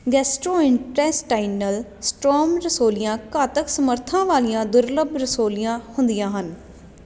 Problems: constant background noise